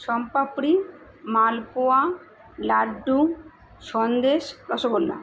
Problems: constant background noise